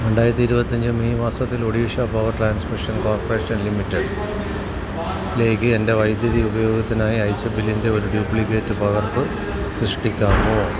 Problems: none marked